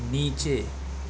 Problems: constant background noise